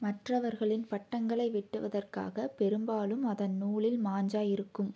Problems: low volume